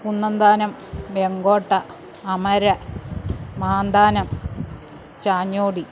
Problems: background sounds at intervals